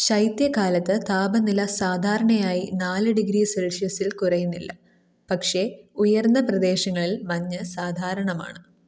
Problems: none marked